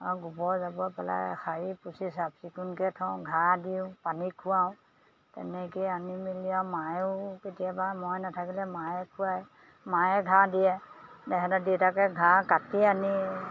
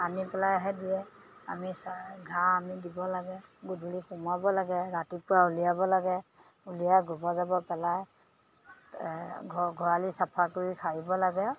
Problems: none marked